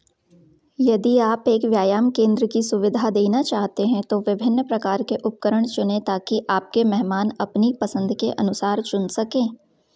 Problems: background sounds at intervals